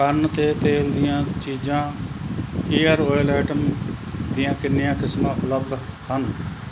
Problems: background sounds at intervals